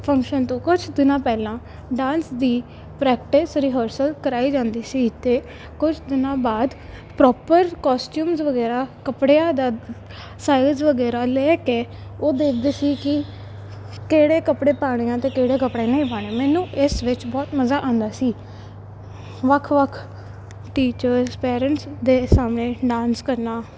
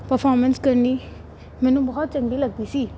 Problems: none marked